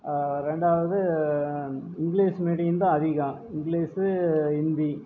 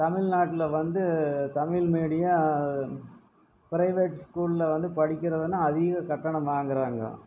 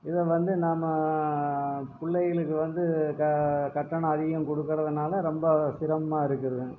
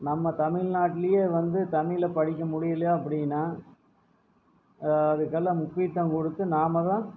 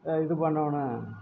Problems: background sounds at intervals, low volume